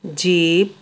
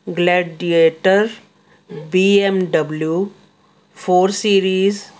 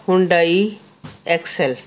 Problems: constant background noise